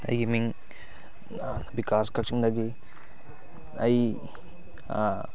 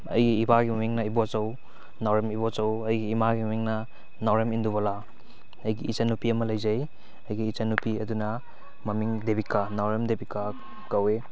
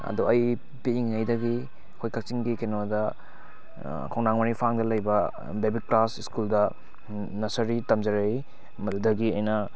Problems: background sounds at intervals, background conversations at intervals